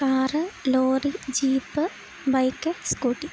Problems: constant background noise